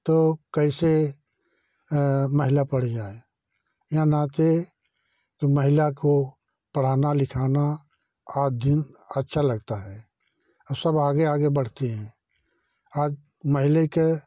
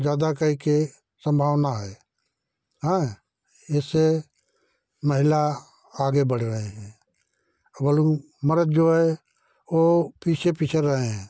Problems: none marked